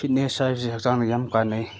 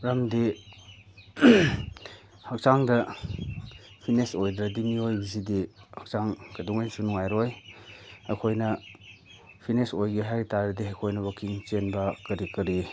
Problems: background sounds at intervals